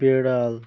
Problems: constant background noise